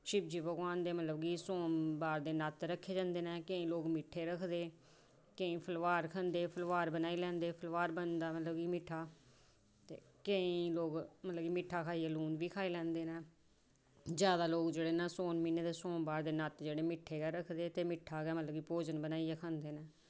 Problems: none marked